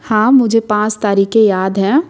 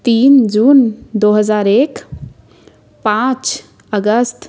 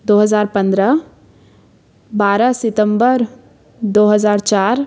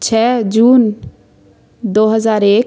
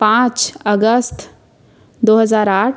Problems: constant background noise